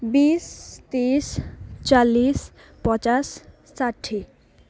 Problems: none marked